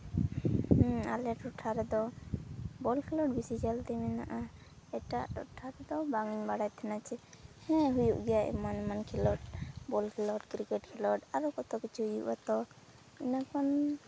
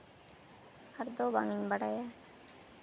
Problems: none marked